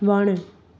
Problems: constant background noise